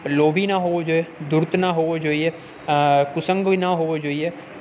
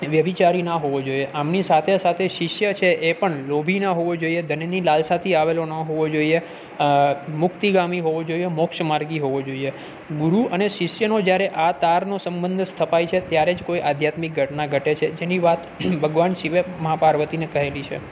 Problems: none marked